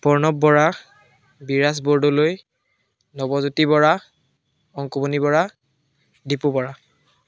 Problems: background conversations at intervals